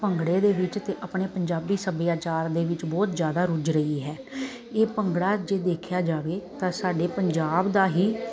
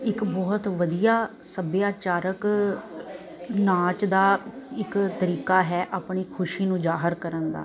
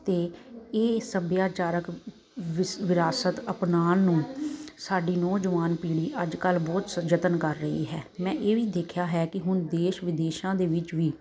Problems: constant background noise